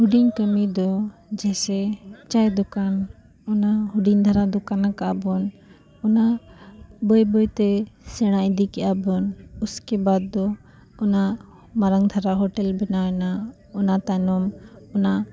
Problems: background sounds at intervals, continuous background conversations